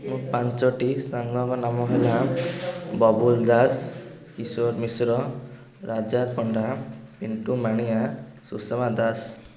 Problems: background conversations at intervals